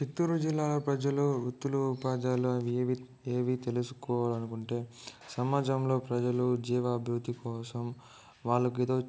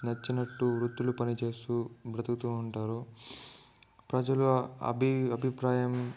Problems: low volume